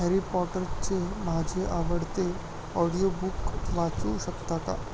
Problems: constant background noise, low volume